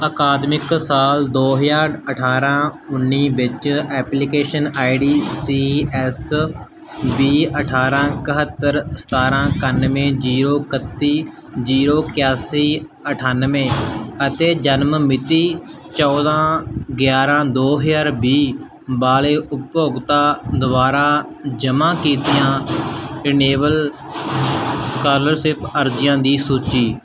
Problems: constant background noise